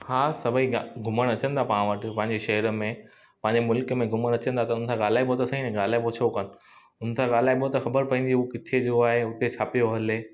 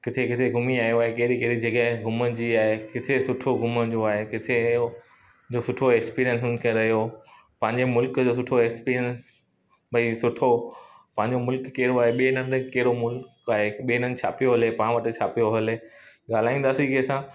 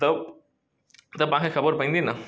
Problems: constant background noise, echo